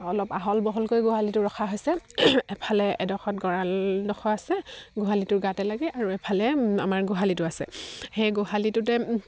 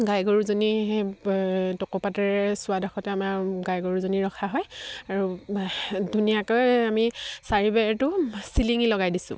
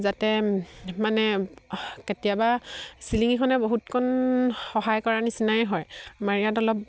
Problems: none marked